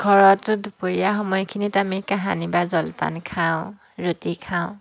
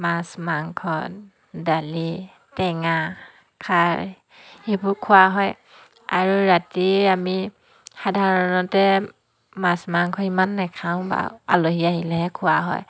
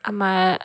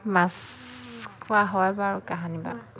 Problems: background conversations at intervals